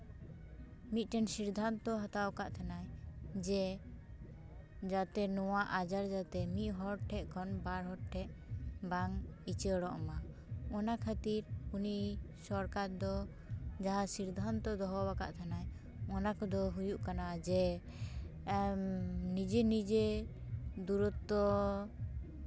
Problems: background conversations at intervals